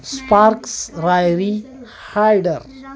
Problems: constant background noise, continuous background conversations